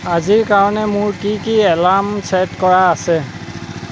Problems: background sounds at intervals